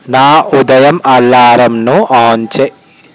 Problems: constant background noise